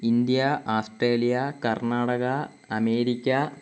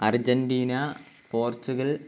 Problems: constant background noise